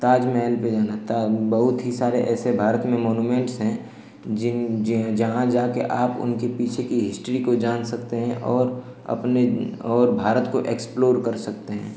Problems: none marked